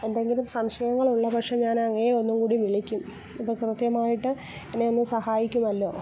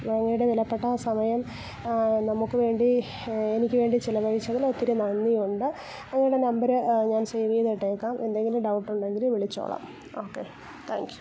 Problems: continuous background conversations